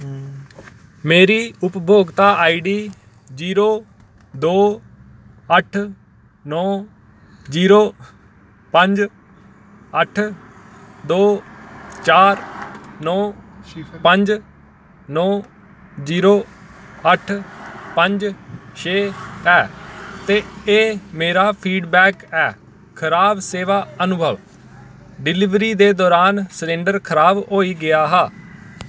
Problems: none marked